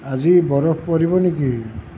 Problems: constant background noise